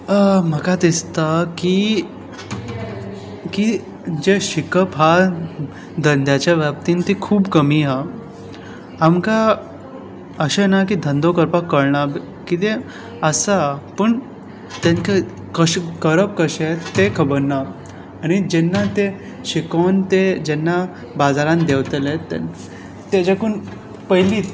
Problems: background sounds at intervals